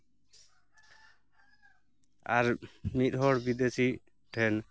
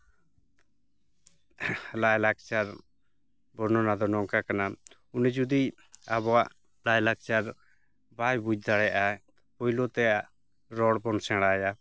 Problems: none marked